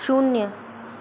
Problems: none marked